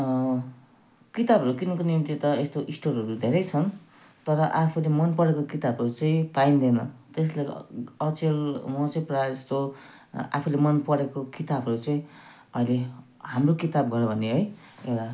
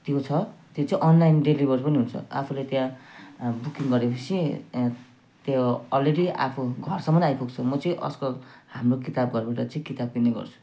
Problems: none marked